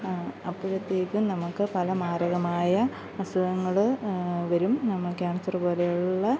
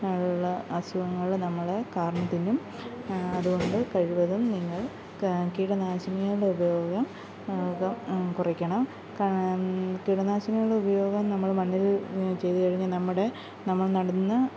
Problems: background sounds at intervals